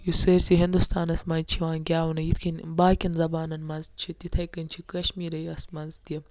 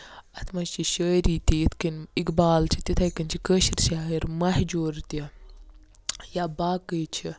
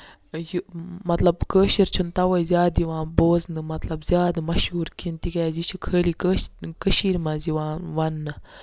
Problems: none marked